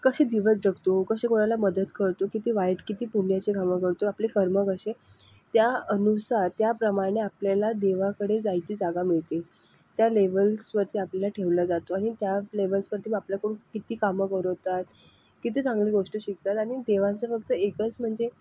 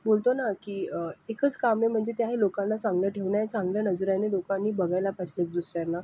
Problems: none marked